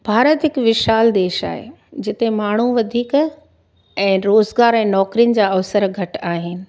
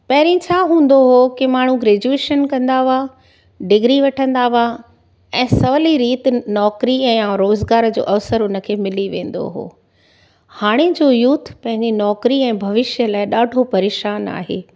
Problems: none marked